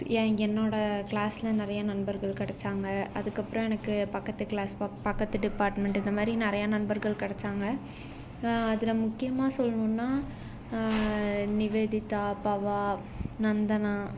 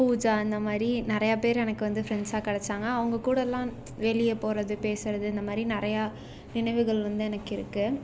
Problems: none marked